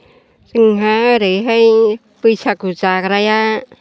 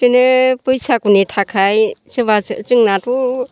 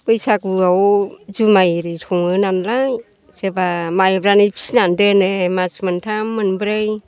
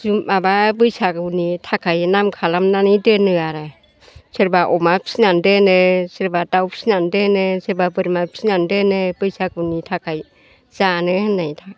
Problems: constant background noise